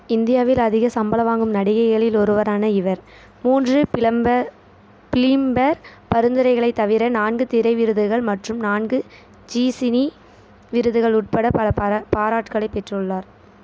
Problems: none marked